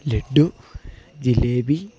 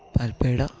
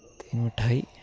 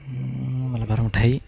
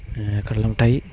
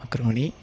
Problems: background sounds at intervals